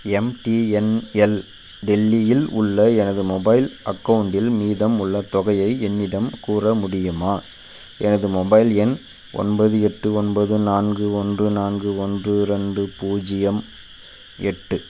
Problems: constant background noise